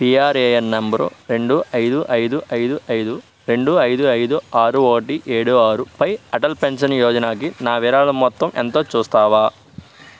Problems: none marked